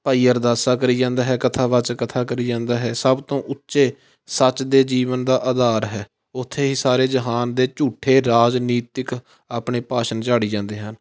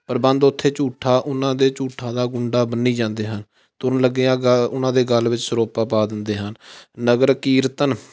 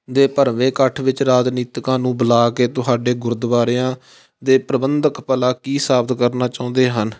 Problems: constant background noise